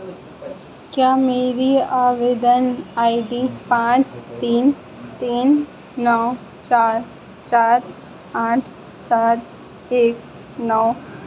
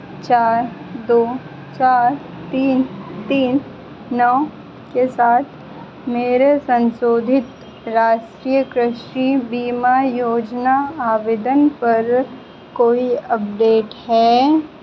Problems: constant background noise